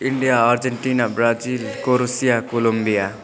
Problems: constant background noise, continuous background conversations